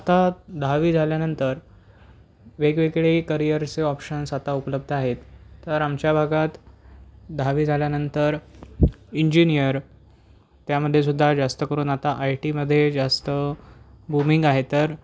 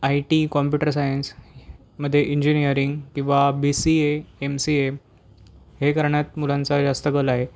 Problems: constant background noise